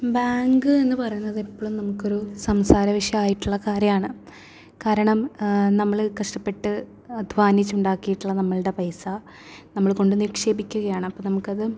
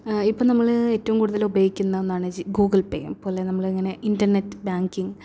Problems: low volume